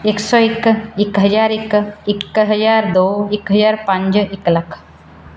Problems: background sounds at intervals